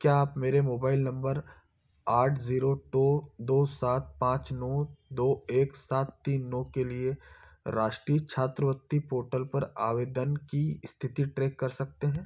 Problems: background sounds at intervals